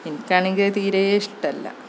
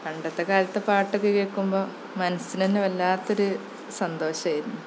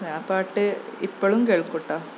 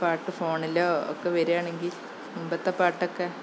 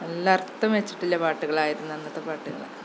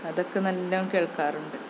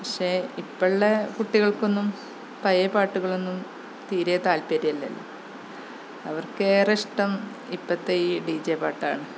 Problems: constant background noise